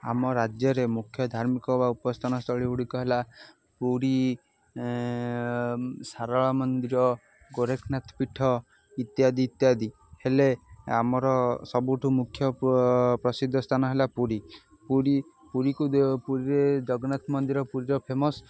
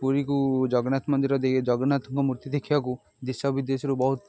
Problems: constant background noise